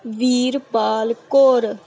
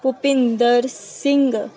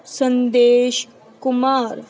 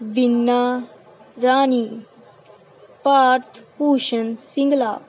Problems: none marked